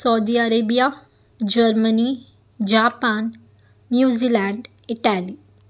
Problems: background sounds at intervals